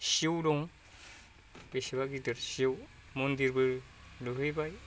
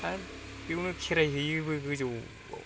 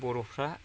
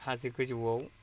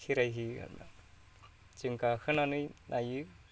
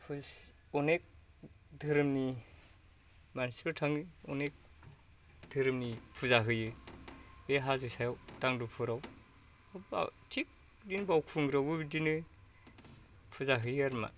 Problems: low volume